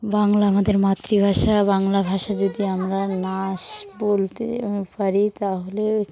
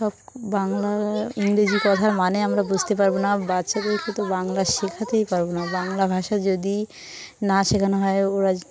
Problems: constant background noise, continuous background conversations